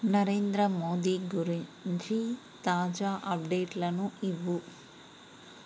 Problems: none marked